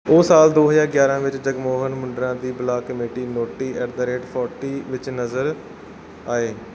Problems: background sounds at intervals